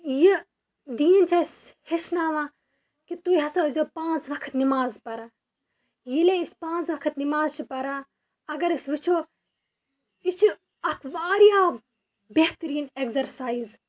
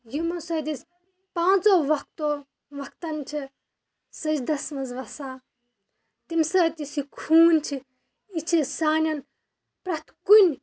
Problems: background sounds at intervals